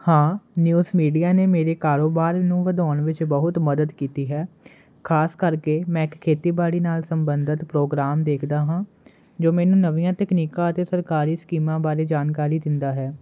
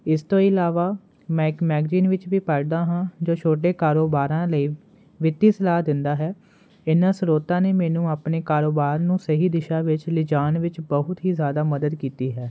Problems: constant background noise